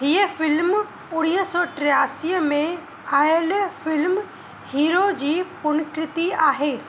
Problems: constant background noise, echo